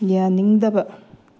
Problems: low volume